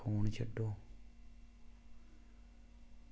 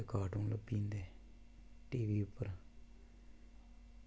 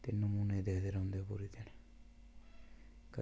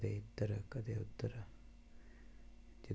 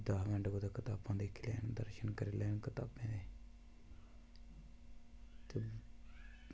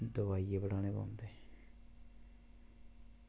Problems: background sounds at intervals